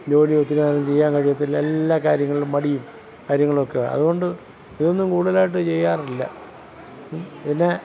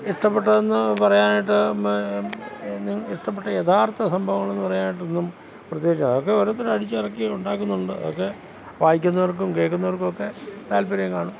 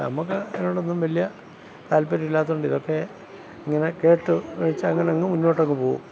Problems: none marked